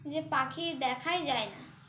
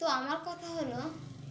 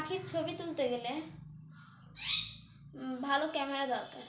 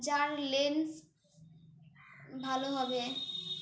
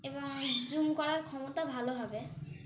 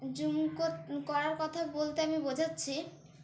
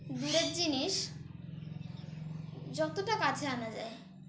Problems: none marked